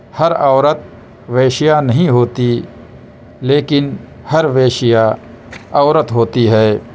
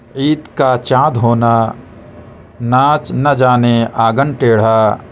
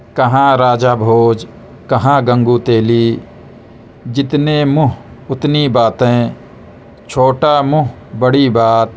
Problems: constant background noise